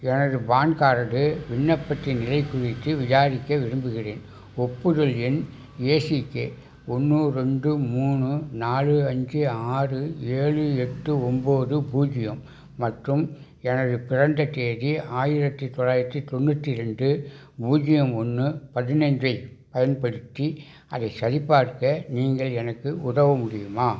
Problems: background sounds at intervals